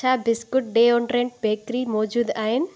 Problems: constant background noise